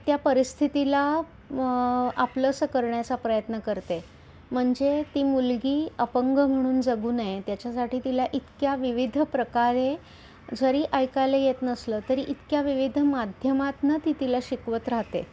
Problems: none marked